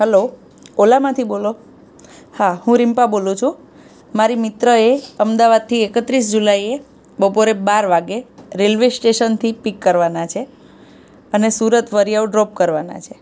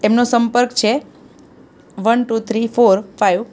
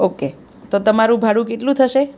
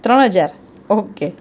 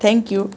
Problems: background sounds at intervals